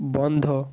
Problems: none marked